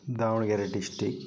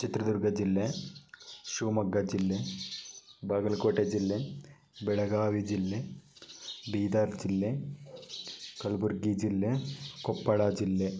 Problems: none marked